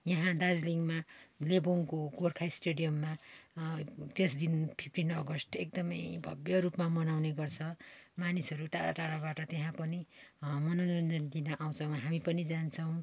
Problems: none marked